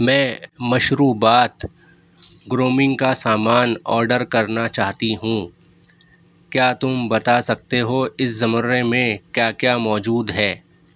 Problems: none marked